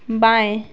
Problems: none marked